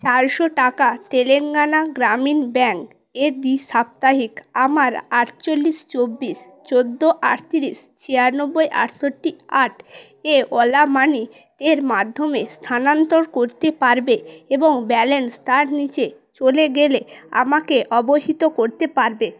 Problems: background conversations at intervals